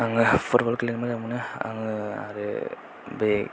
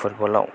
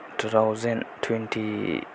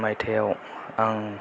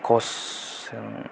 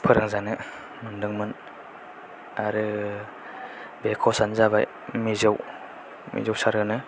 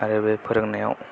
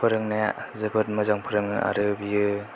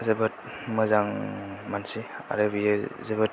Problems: low volume